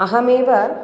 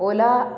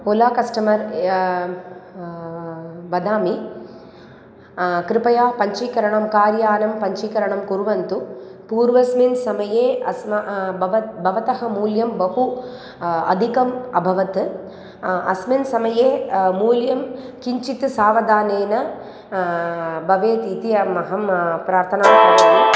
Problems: none marked